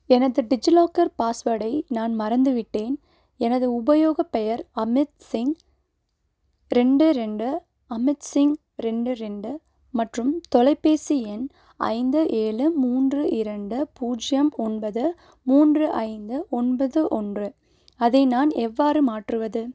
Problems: none marked